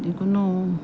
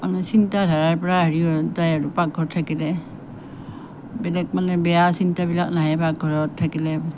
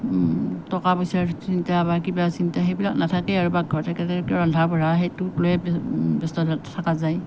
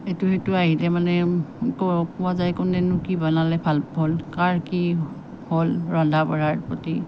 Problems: none marked